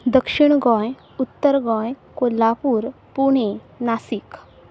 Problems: background sounds at intervals